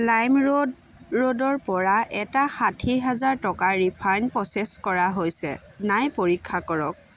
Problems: none marked